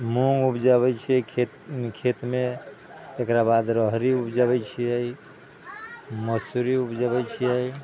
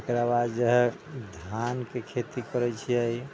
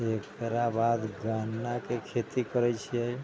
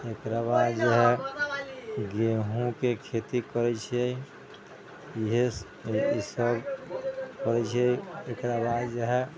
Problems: background sounds at intervals